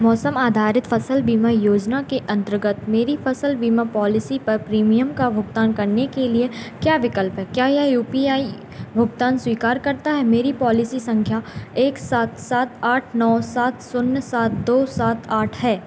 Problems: none marked